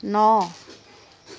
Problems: none marked